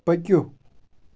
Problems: background sounds at intervals